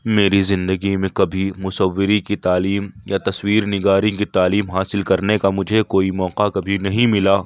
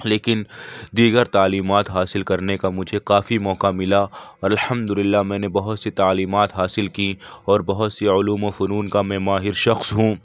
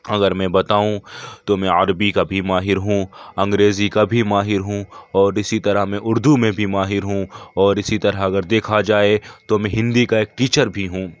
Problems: none marked